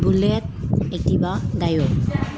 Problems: none marked